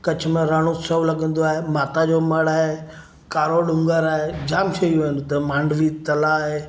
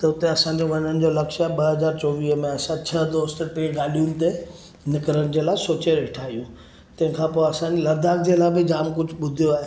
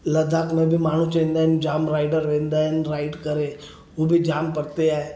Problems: none marked